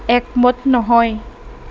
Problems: constant background noise